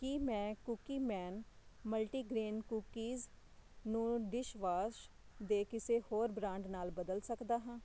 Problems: constant background noise